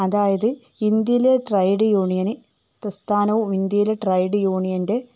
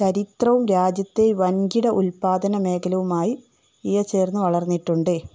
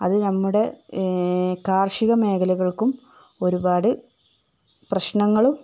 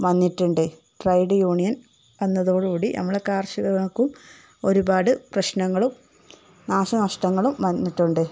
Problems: none marked